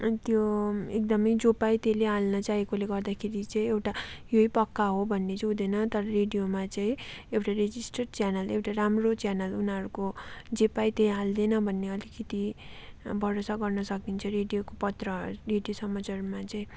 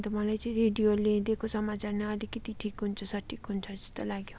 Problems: background sounds at intervals